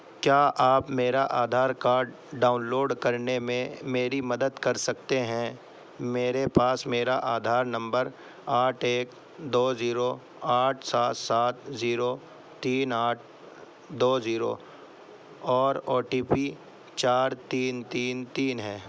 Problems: none marked